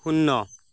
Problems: none marked